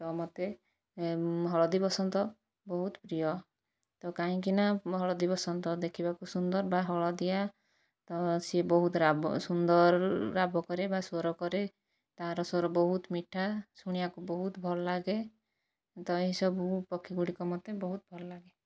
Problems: low volume